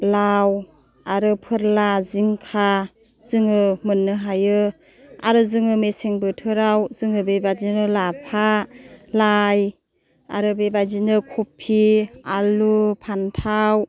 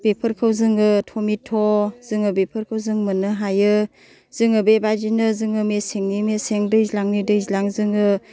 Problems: none marked